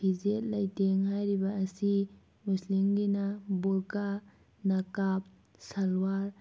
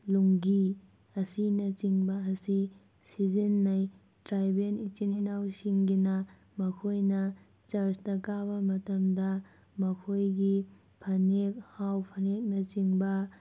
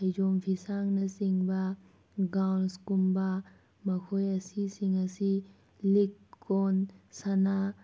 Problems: none marked